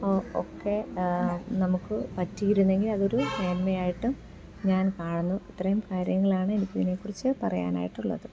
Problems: none marked